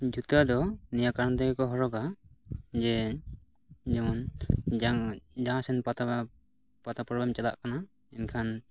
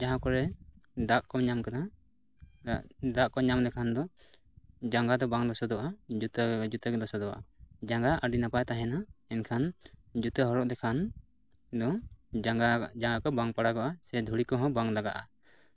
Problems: constant background noise